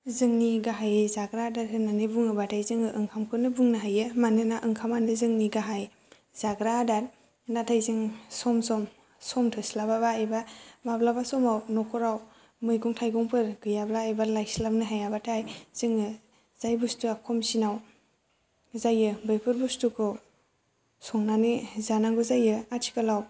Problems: low volume